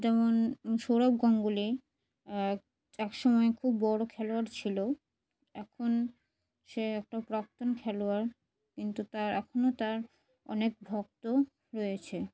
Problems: background sounds at intervals